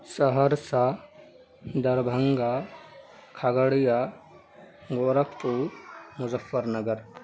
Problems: constant background noise, background conversations at intervals